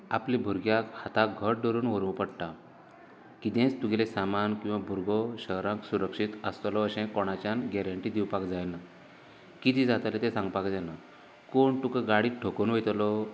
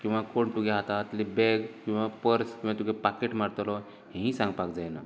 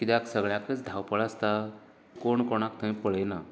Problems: constant background noise